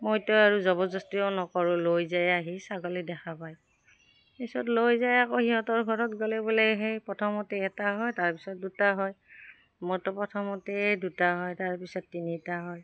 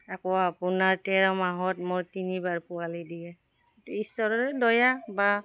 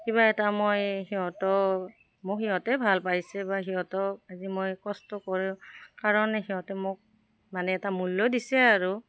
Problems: none marked